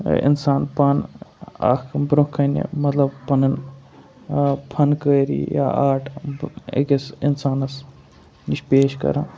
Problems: constant background noise